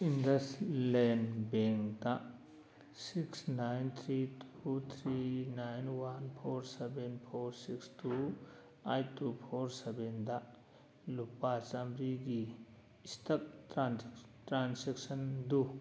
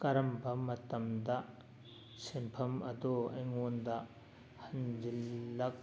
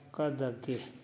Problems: background conversations at intervals